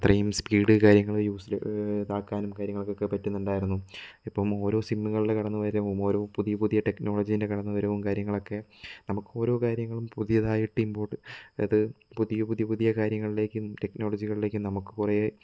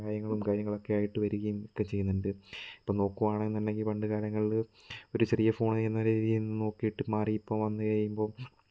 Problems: none marked